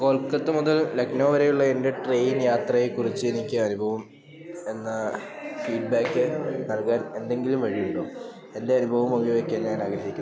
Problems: continuous background conversations, low volume